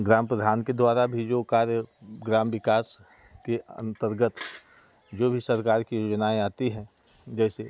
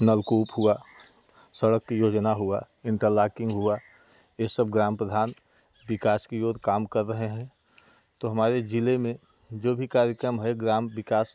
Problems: constant background noise, background conversations at intervals